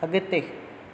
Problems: none marked